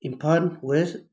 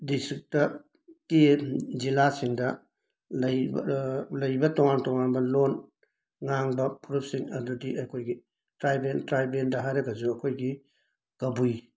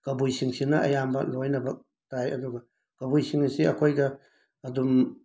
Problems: none marked